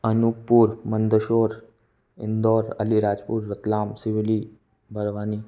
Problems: background sounds at intervals